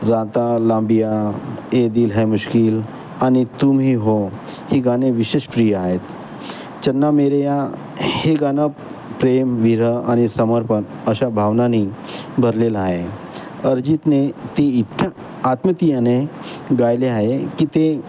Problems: constant background noise